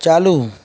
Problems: constant background noise